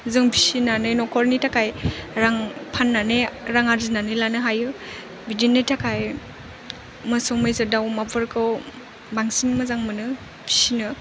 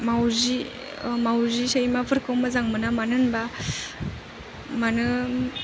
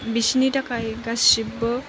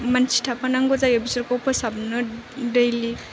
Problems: background sounds at intervals